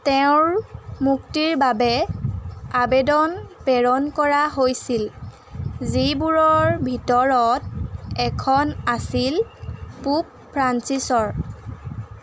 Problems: constant background noise